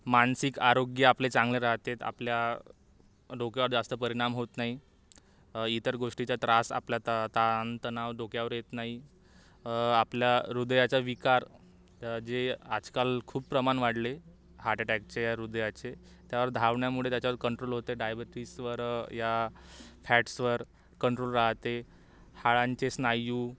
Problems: background sounds at intervals